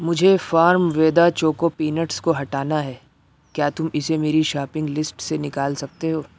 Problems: background sounds at intervals